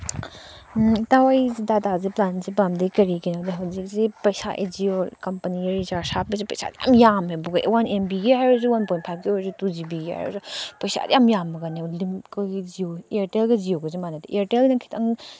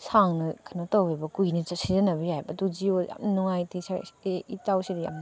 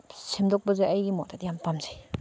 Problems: none marked